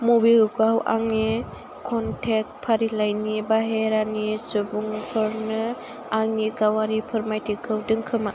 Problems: constant background noise